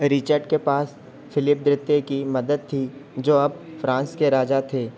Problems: constant background noise